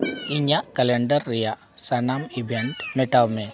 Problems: background sounds at intervals